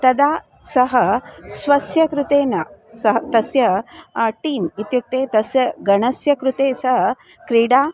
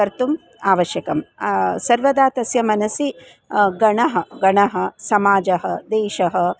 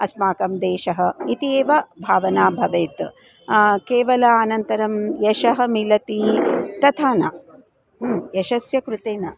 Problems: constant background noise